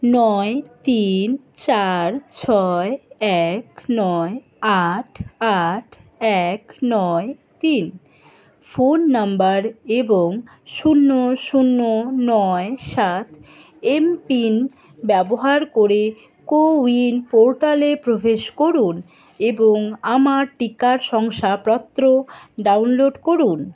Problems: background sounds at intervals, continuous background conversations